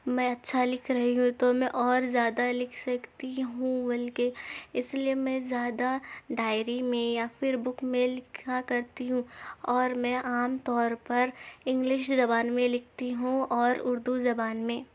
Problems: none marked